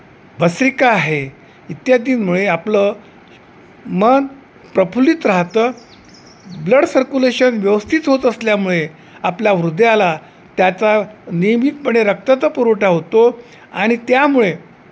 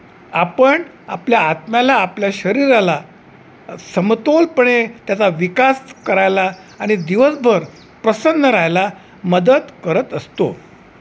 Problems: none marked